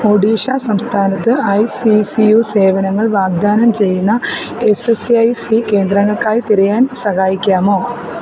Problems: constant background noise